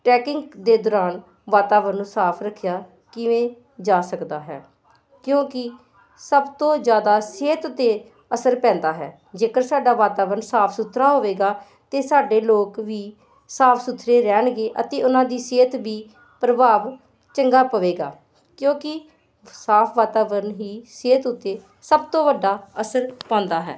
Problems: constant background noise